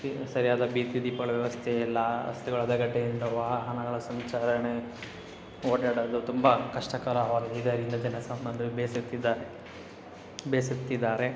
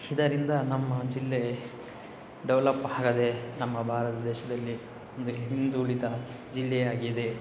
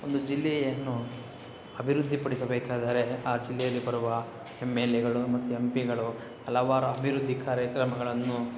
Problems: constant background noise